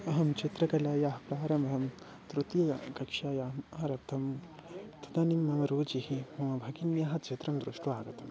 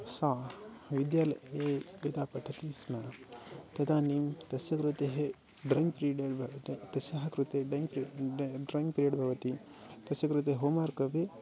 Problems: background sounds at intervals, background conversations at intervals, low volume